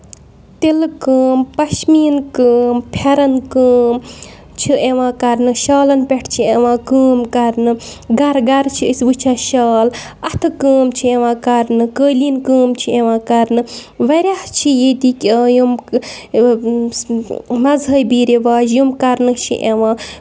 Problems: none marked